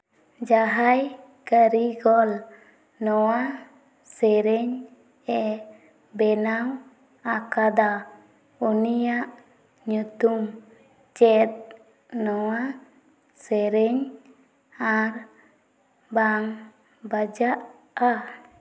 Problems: background sounds at intervals, echo